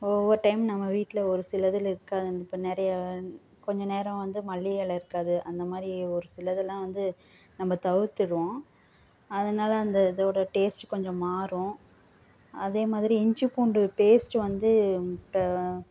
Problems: none marked